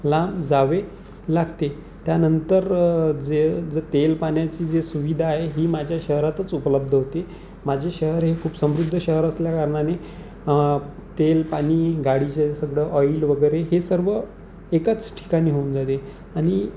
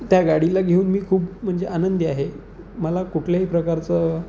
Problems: none marked